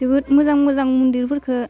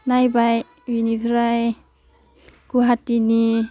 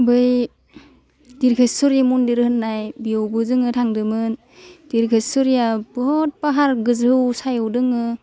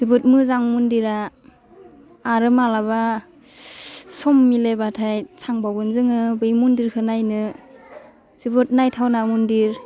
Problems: none marked